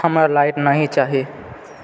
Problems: background sounds at intervals